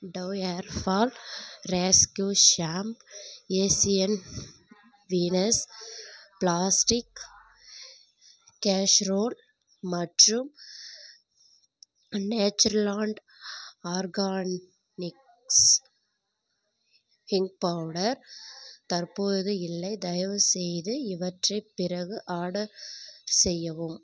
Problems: none marked